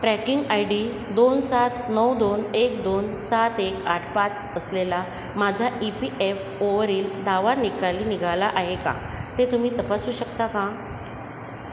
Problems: constant background noise, echo